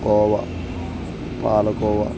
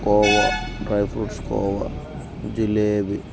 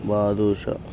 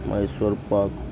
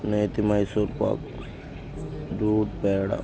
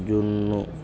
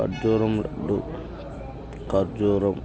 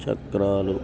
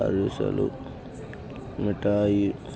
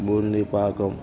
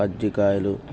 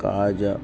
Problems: constant background noise, background conversations at intervals